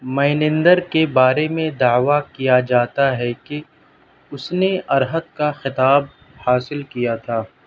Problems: none marked